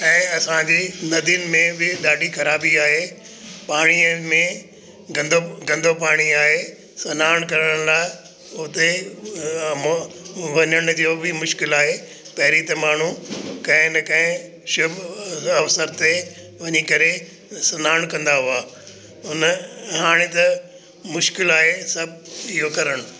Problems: constant background noise, echo